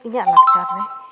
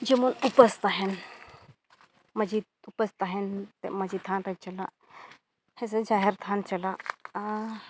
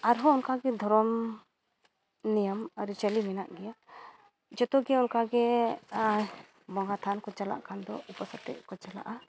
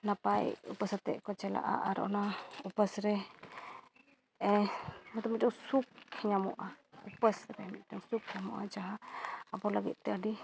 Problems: background sounds at intervals, low volume